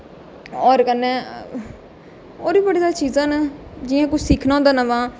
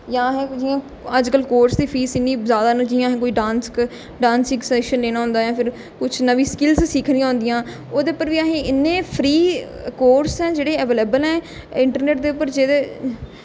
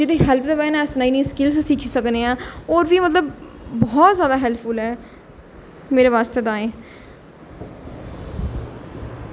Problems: none marked